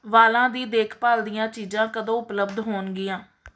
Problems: background sounds at intervals